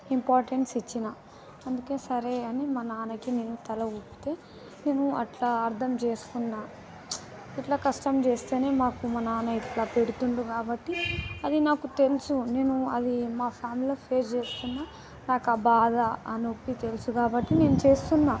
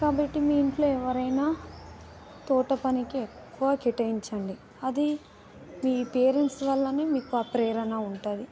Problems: background sounds at intervals, background conversations at intervals